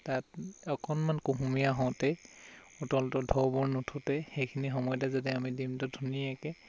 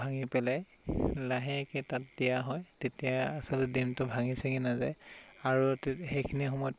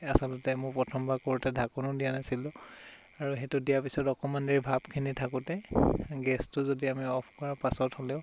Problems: constant background noise